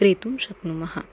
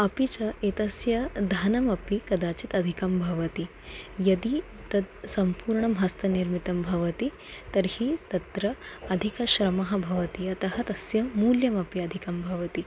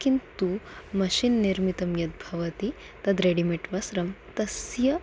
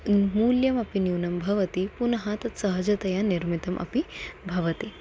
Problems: none marked